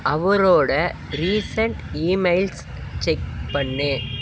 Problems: constant background noise